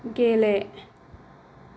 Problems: low volume